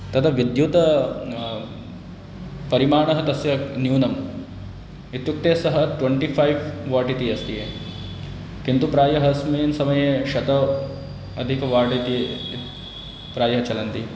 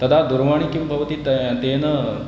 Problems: constant background noise